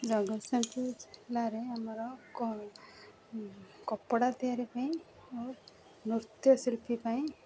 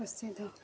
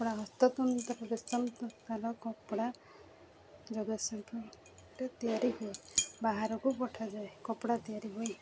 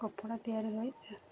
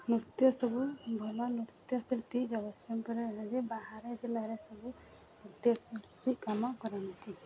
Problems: background sounds at intervals, background conversations at intervals